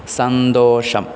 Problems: none marked